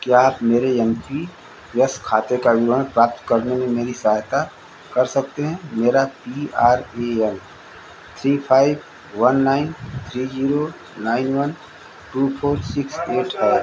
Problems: constant background noise